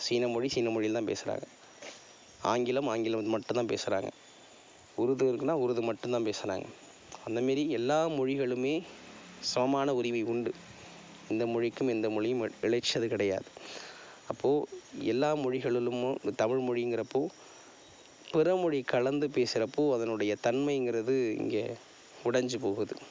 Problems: none marked